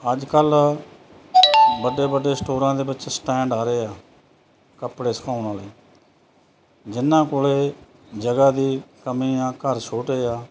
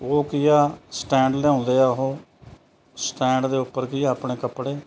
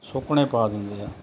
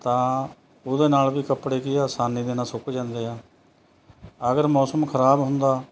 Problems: constant background noise